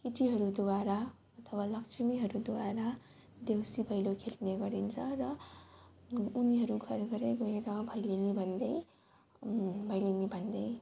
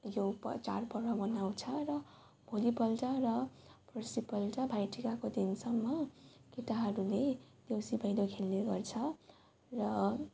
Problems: constant background noise